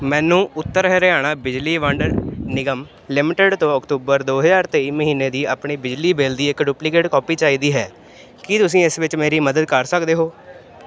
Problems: constant background noise